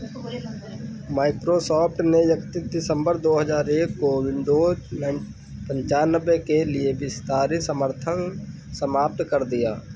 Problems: constant background noise